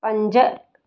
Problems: none marked